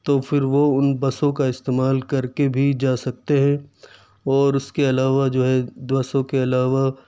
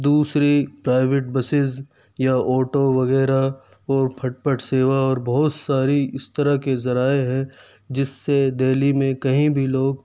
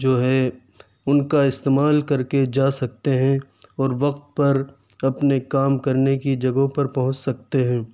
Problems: none marked